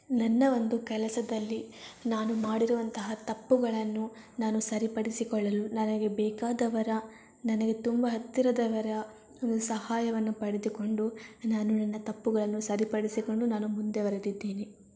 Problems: none marked